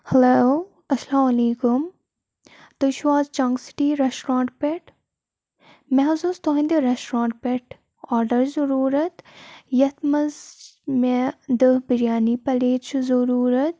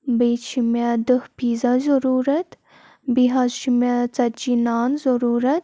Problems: none marked